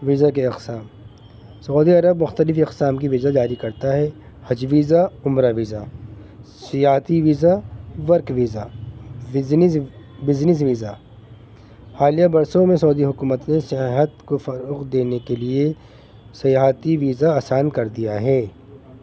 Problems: constant background noise